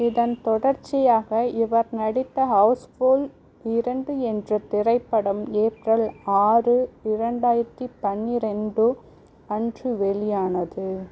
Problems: none marked